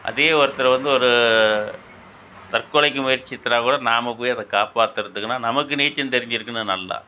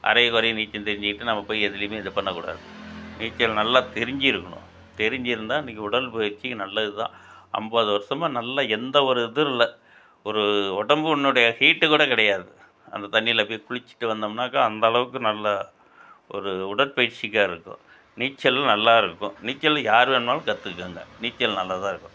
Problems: background sounds at intervals